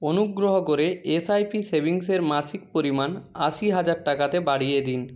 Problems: none marked